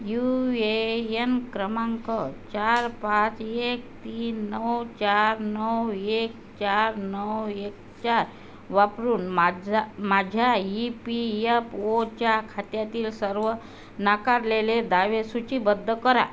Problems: constant background noise